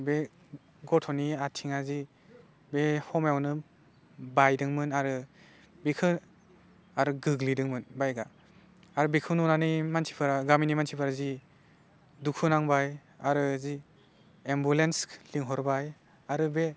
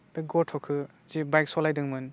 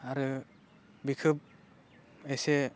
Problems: low volume